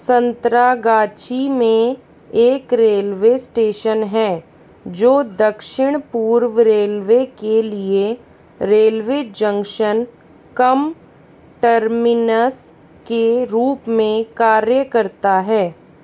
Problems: constant background noise